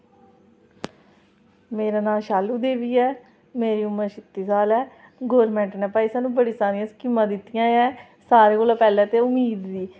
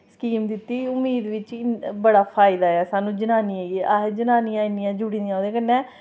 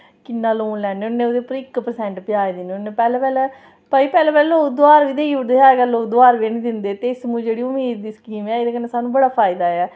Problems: none marked